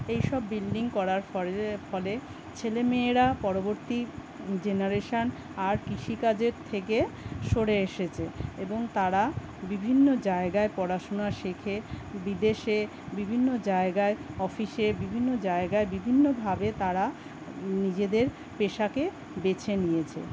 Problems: constant background noise